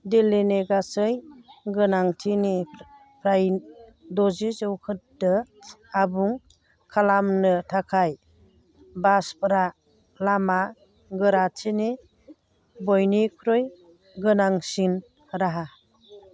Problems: constant background noise